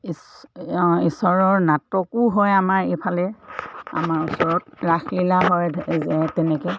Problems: none marked